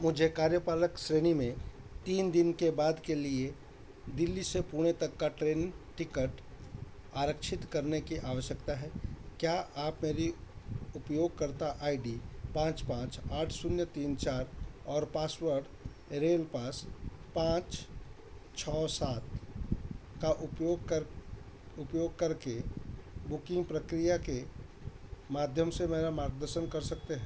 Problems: none marked